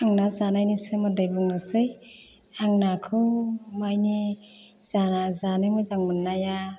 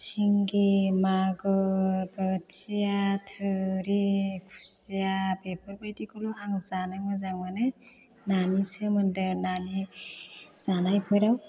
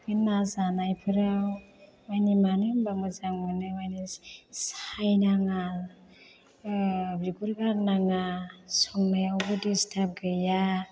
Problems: low volume